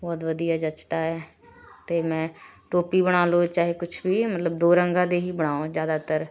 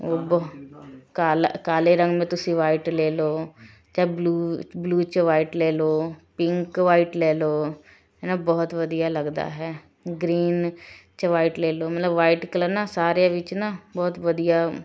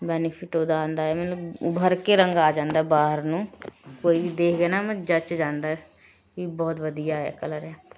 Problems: none marked